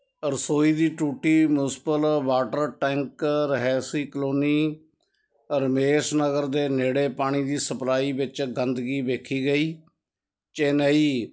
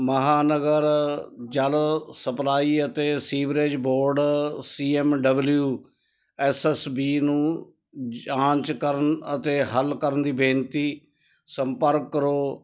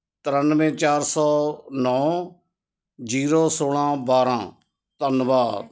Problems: background conversations at intervals